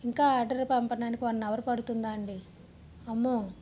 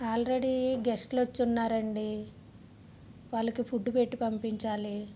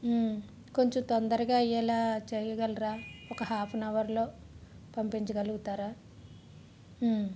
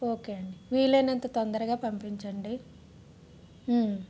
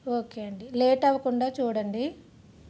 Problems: constant background noise